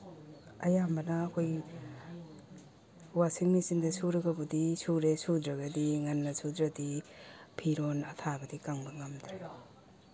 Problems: none marked